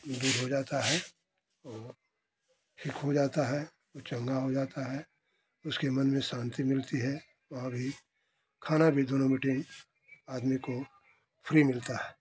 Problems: none marked